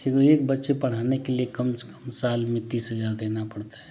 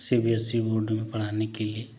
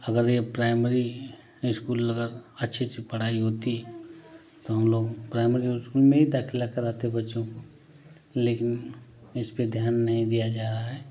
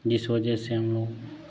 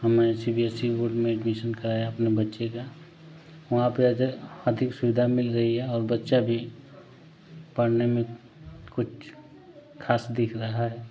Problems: none marked